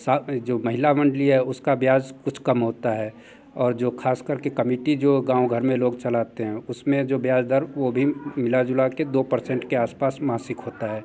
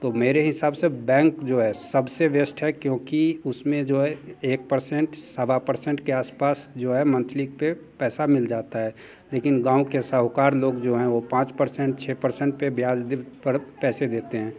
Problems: constant background noise, continuous background conversations